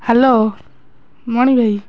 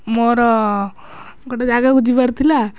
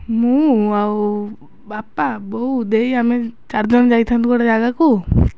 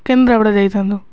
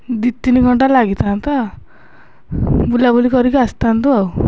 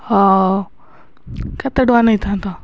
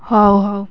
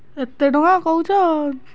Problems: none marked